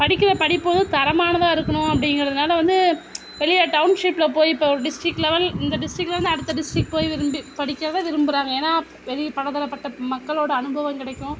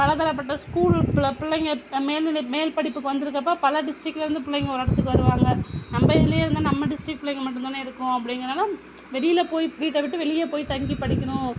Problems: constant background noise